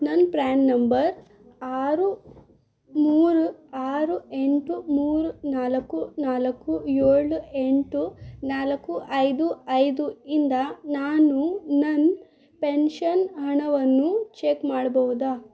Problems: none marked